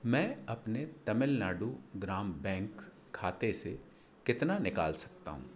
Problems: constant background noise